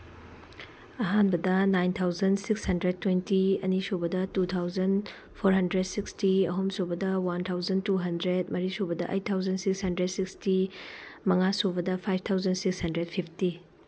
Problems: background sounds at intervals